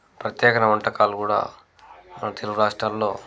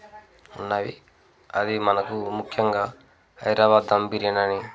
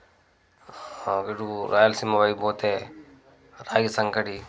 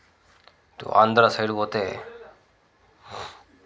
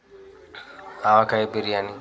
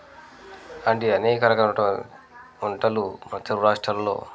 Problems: constant background noise, background conversations at intervals